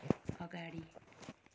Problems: low volume